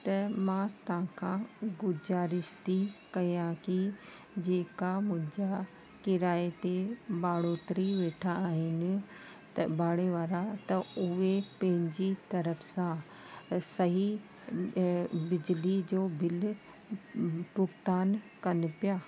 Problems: constant background noise